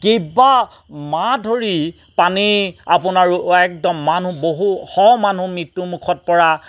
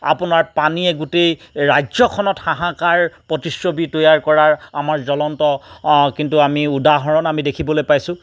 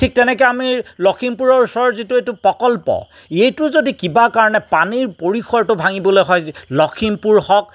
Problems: background sounds at intervals